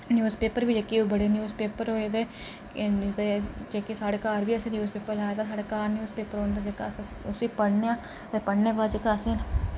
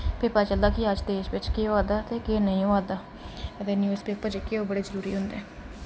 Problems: none marked